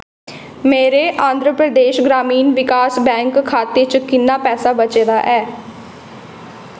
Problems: constant background noise, echo